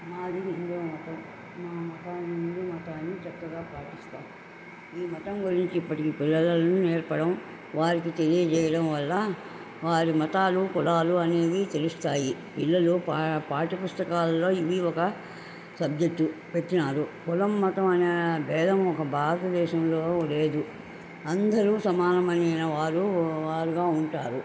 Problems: constant background noise